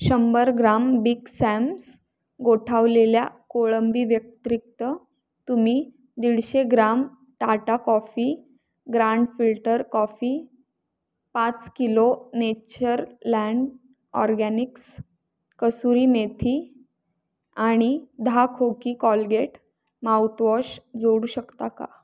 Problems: background sounds at intervals